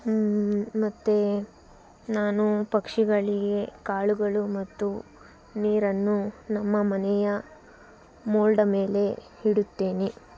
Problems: background sounds at intervals